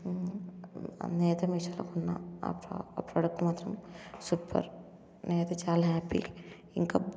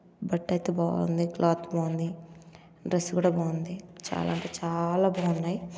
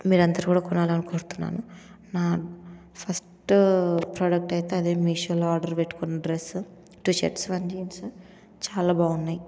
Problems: none marked